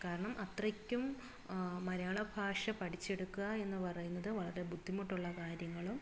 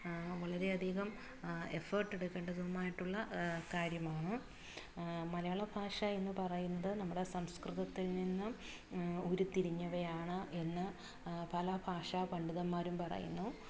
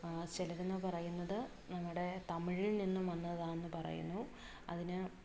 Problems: low volume